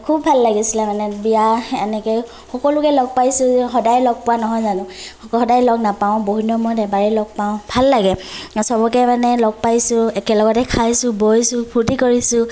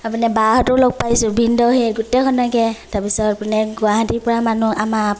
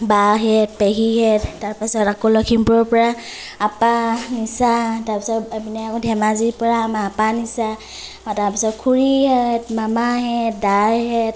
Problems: none marked